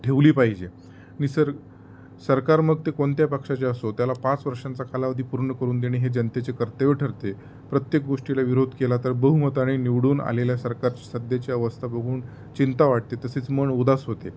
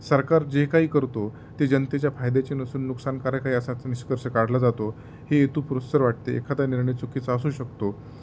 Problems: constant background noise, background conversations at intervals